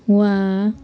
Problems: background sounds at intervals